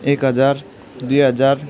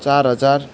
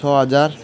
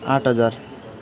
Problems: background sounds at intervals, background conversations at intervals